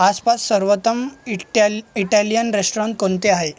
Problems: constant background noise, background conversations at intervals